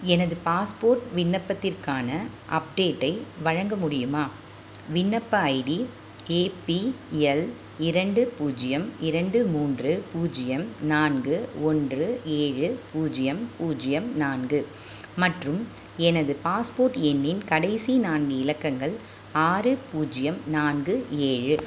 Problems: none marked